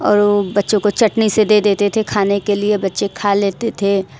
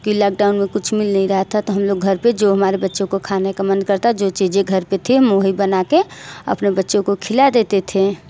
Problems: none marked